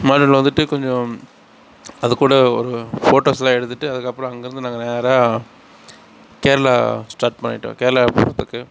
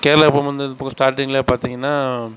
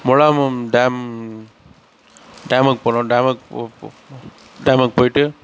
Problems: none marked